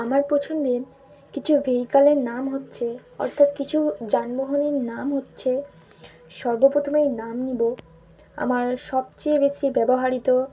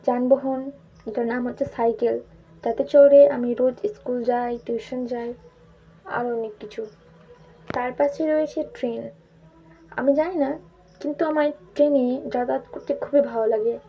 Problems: none marked